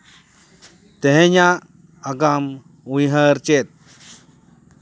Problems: none marked